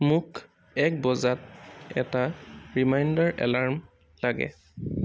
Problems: constant background noise